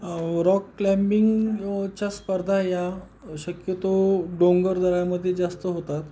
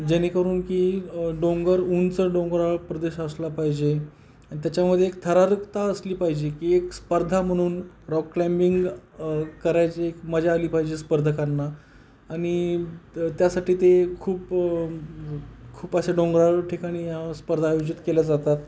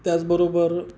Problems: background sounds at intervals